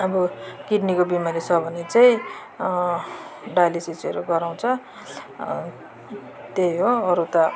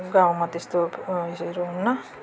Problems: constant background noise